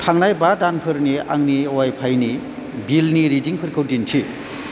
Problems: constant background noise